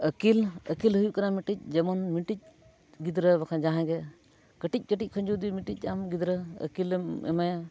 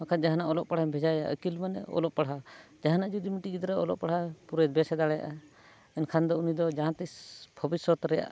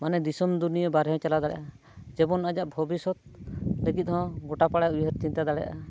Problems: none marked